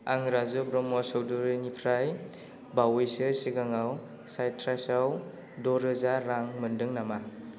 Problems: none marked